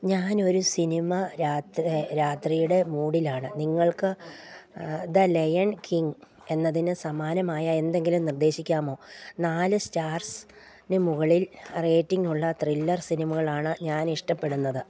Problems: none marked